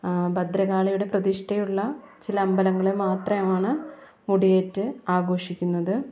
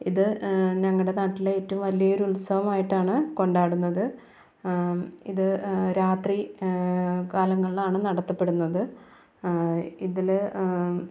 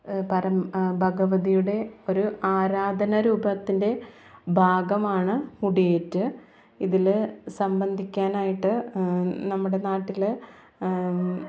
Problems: background sounds at intervals